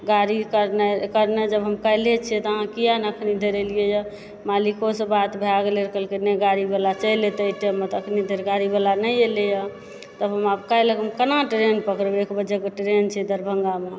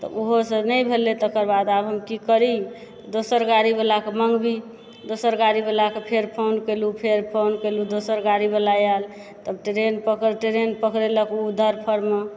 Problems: background sounds at intervals, background conversations at intervals